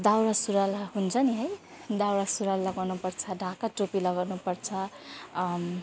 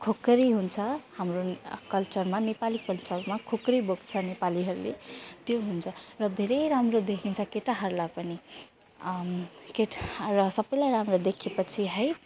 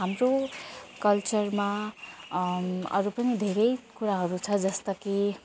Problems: constant background noise, continuous background conversations